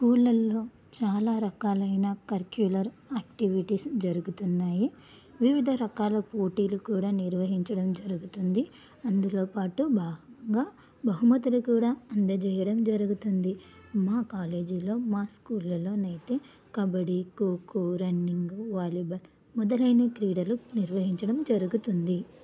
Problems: low volume